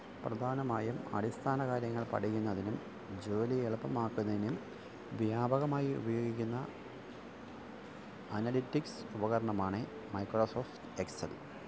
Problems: constant background noise, low volume